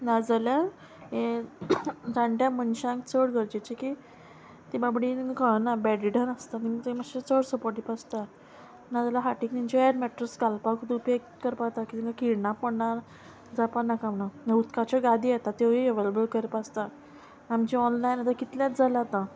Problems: constant background noise